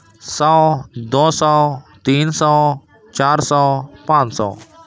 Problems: constant background noise